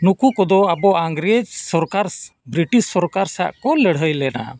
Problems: background sounds at intervals